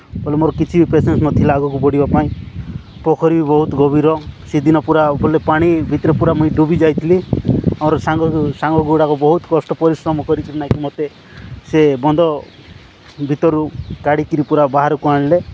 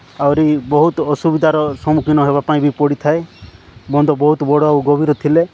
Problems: constant background noise